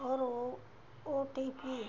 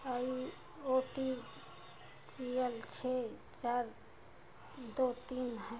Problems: constant background noise